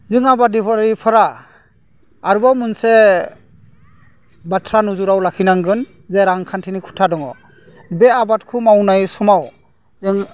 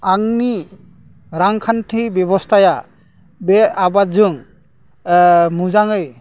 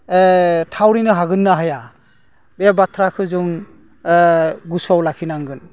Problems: none marked